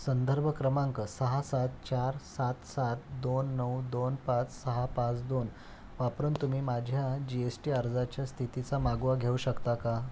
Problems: none marked